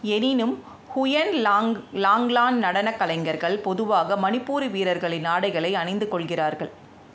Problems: constant background noise